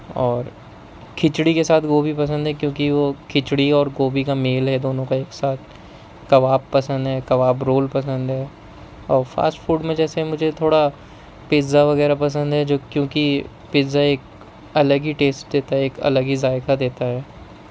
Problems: constant background noise